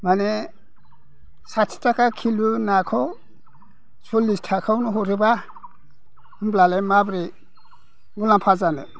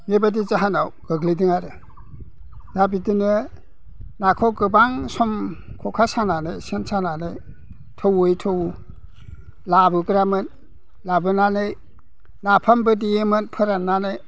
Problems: background conversations at intervals